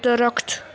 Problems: none marked